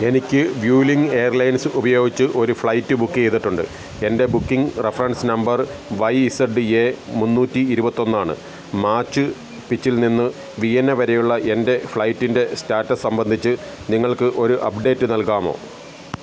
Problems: background sounds at intervals